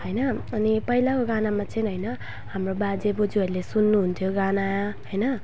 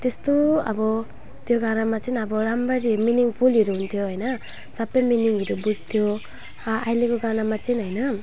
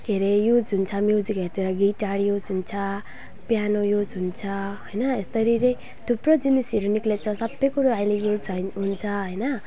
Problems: constant background noise, low volume